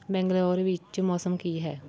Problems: continuous background conversations